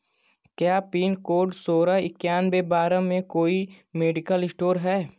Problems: constant background noise